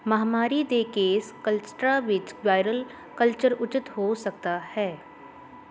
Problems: constant background noise